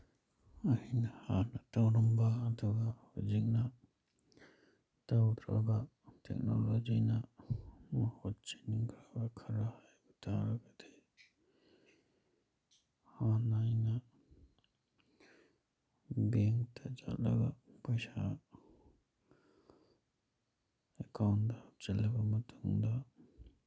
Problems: background sounds at intervals